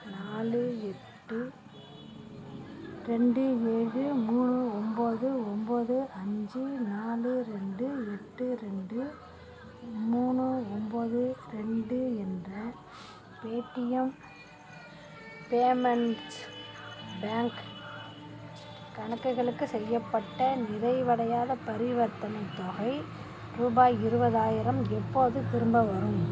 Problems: background sounds at intervals